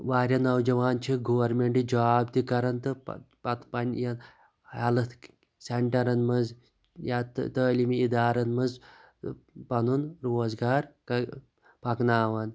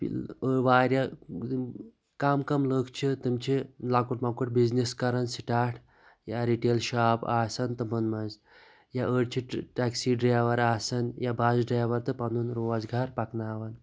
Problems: background sounds at intervals